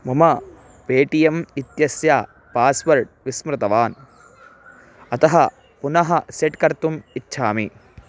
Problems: none marked